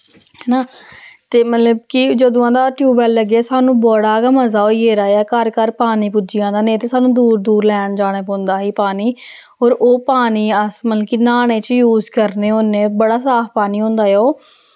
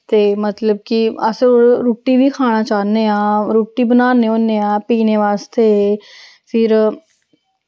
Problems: none marked